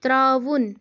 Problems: none marked